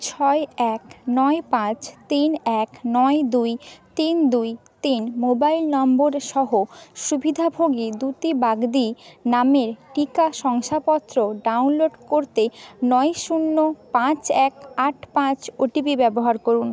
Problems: none marked